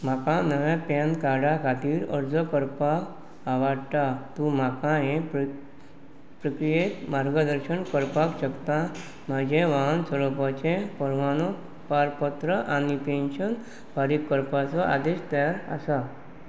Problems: background sounds at intervals